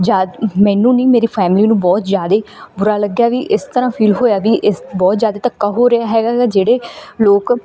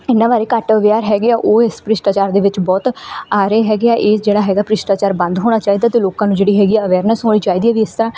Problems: background sounds at intervals